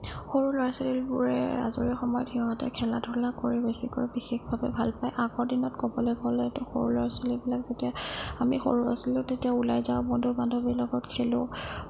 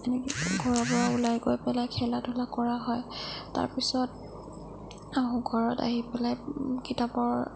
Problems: low volume